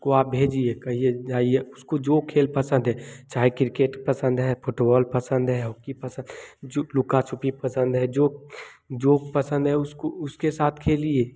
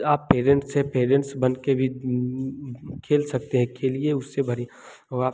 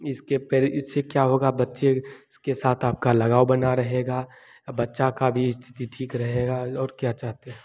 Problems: none marked